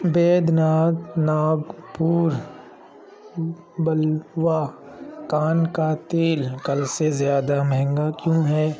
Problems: background sounds at intervals, continuous background conversations